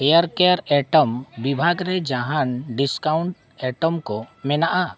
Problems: background sounds at intervals